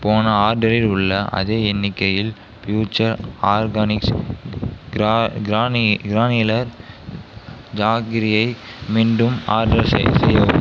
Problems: constant background noise